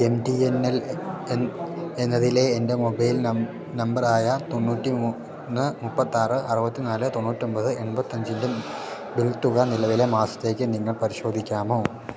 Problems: low volume